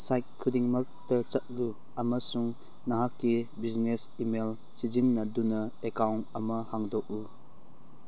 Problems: none marked